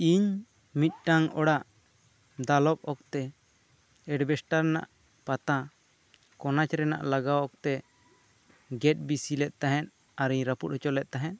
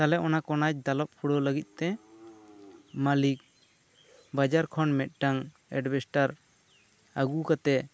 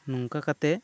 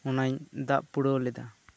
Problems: constant background noise